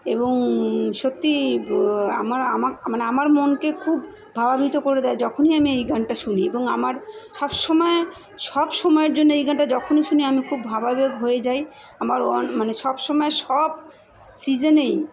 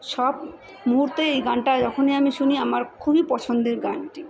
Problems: continuous background conversations